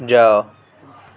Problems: continuous background conversations